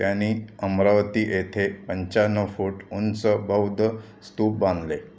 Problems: constant background noise, continuous background conversations